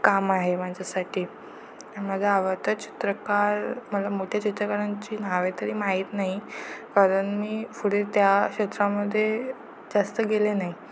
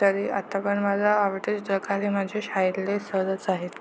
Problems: constant background noise